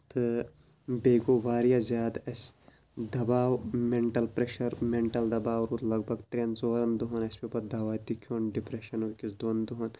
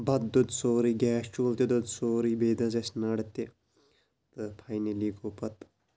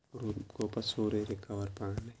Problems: low volume